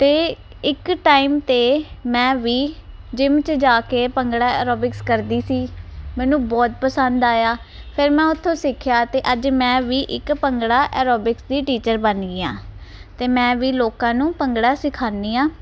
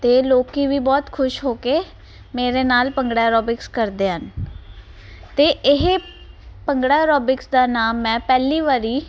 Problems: none marked